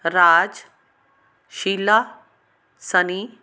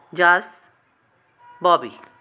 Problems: background sounds at intervals